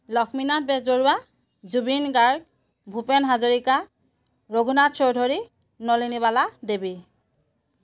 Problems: none marked